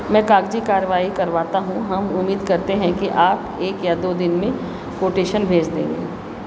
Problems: none marked